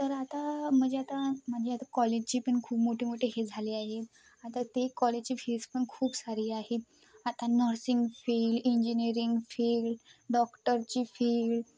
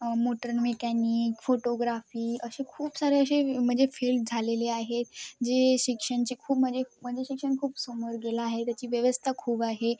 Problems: none marked